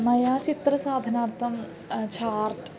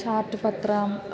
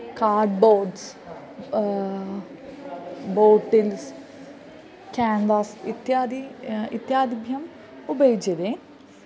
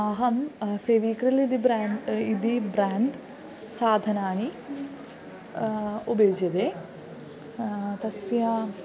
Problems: none marked